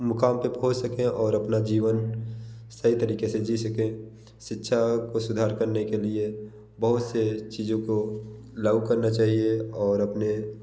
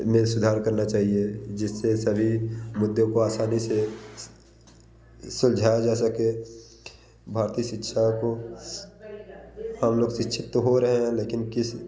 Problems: none marked